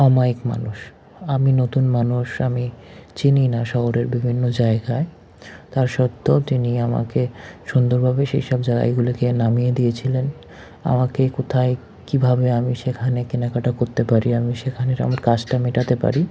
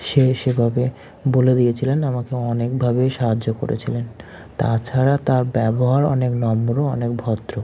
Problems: none marked